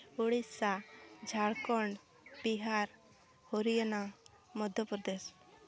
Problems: background sounds at intervals, background conversations at intervals